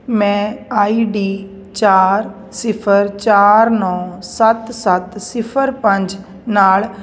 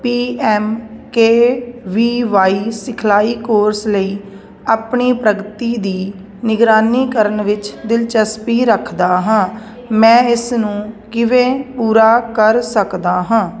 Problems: none marked